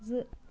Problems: none marked